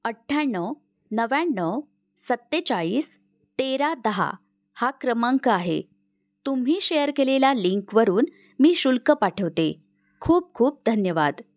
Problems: none marked